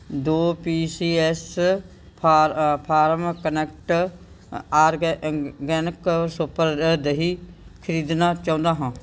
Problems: background sounds at intervals